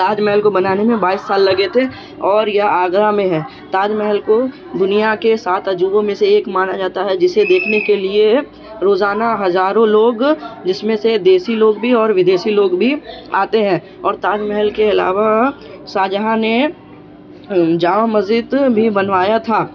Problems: background sounds at intervals, continuous background conversations